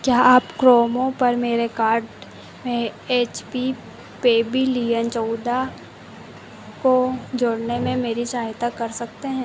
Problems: constant background noise